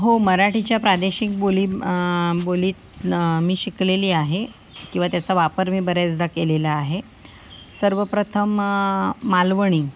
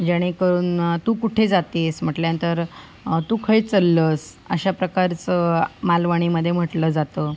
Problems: none marked